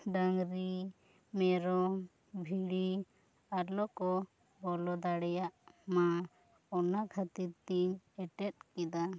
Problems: low volume